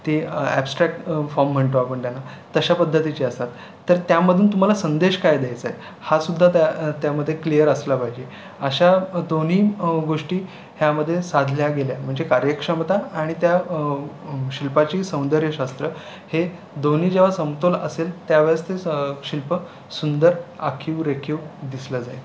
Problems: constant background noise, continuous background conversations